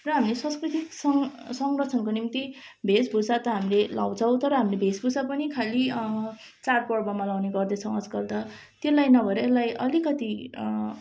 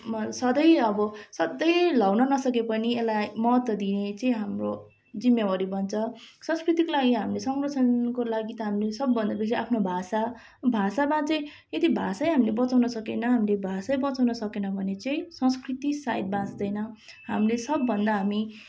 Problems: none marked